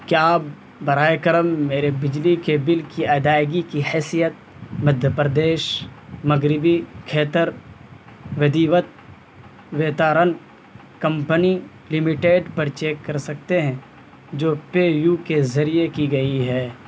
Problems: constant background noise